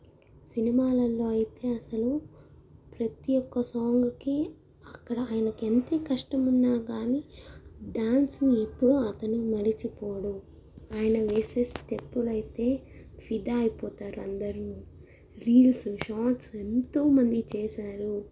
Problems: none marked